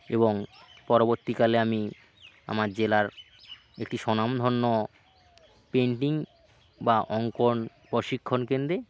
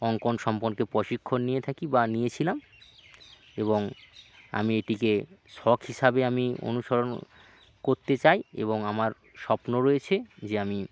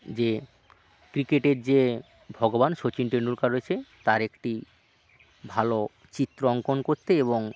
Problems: constant background noise, continuous background conversations